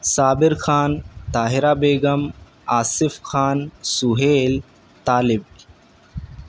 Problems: none marked